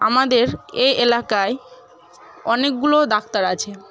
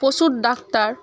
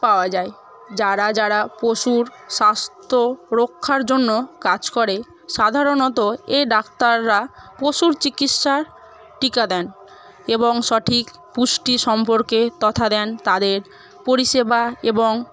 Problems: constant background noise, continuous background conversations